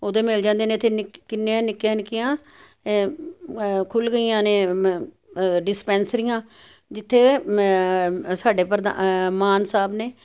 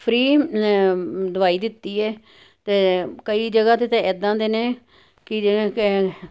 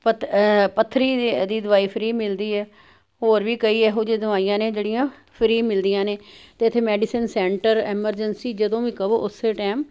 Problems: none marked